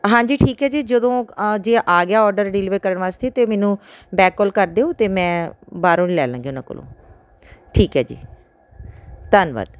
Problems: background sounds at intervals